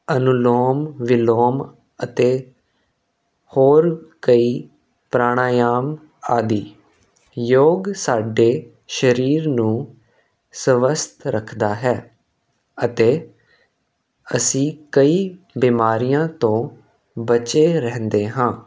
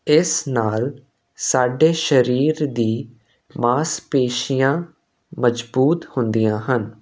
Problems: constant background noise